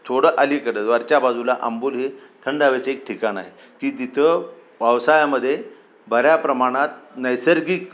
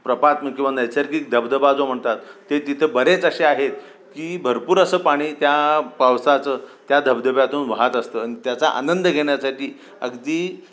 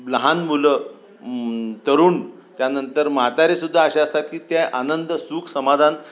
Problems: constant background noise